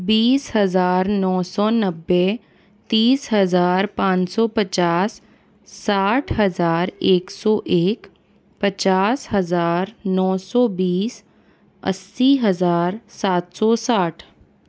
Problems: background sounds at intervals